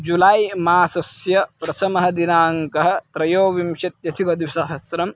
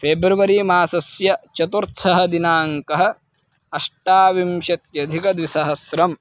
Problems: constant background noise